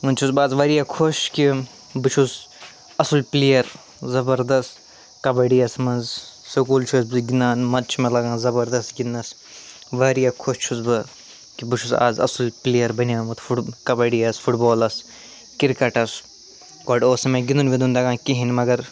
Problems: none marked